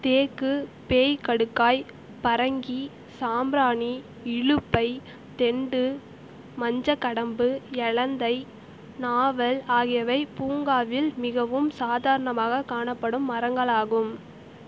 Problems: constant background noise